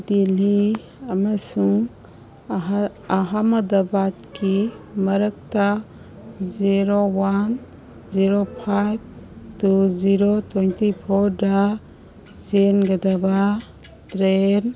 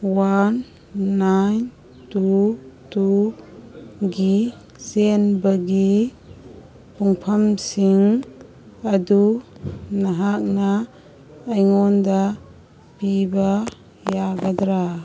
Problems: background sounds at intervals, background conversations at intervals